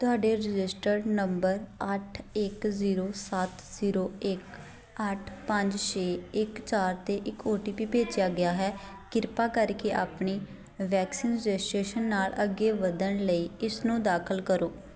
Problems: continuous background conversations